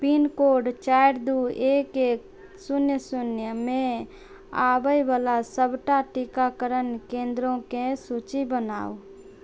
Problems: none marked